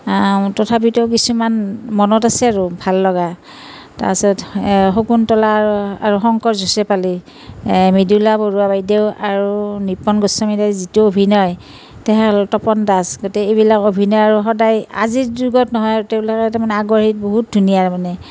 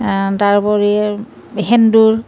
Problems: none marked